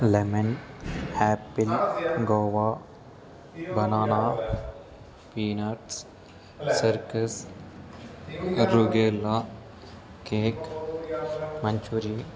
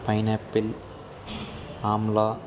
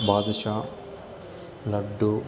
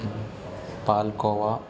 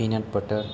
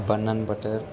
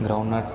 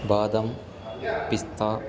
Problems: constant background noise, continuous background conversations